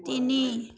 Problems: none marked